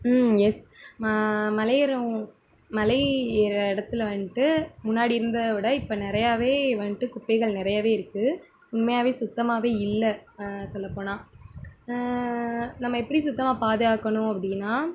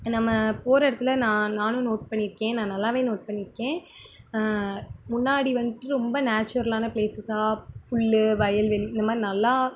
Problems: constant background noise